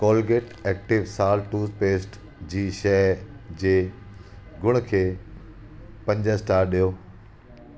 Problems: constant background noise